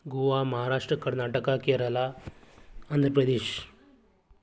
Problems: none marked